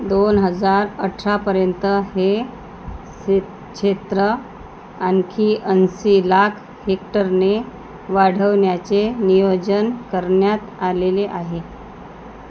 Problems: constant background noise